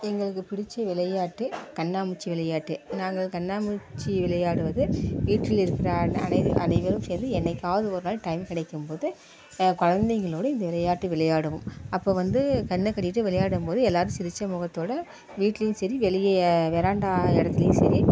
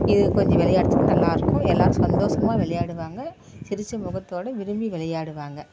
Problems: constant background noise